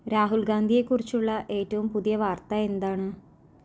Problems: none marked